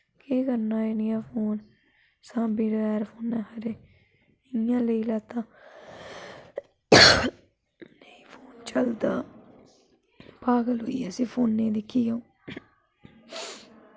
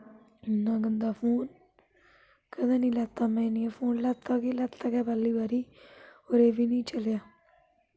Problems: constant background noise